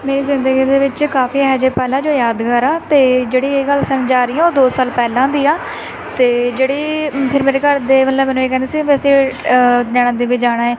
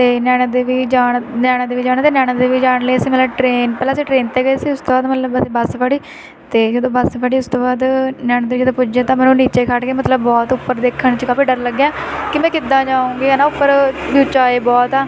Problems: constant background noise